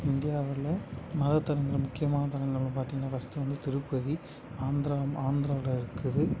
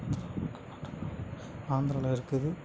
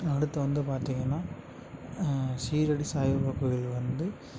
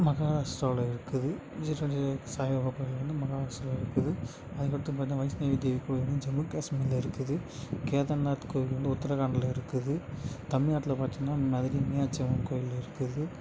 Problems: none marked